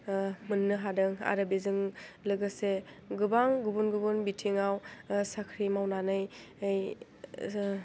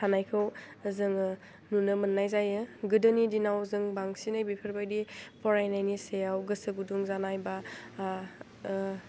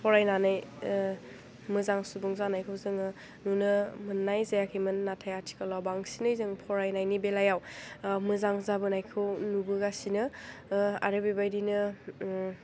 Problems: low volume